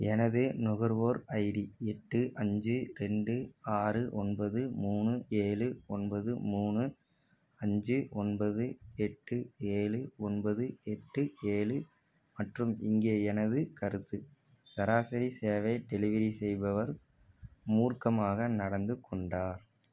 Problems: none marked